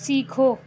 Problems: none marked